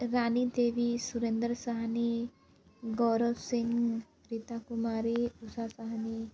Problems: constant background noise